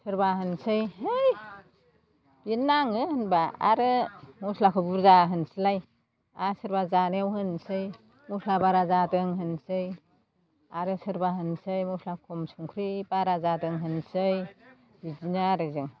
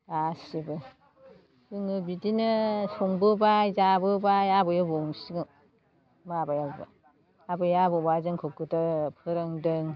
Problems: constant background noise